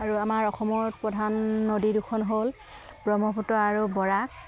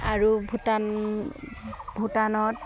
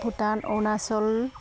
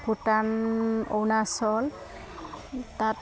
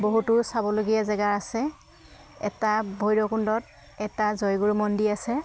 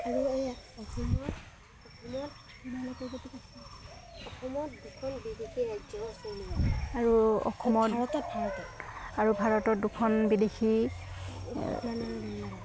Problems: background sounds at intervals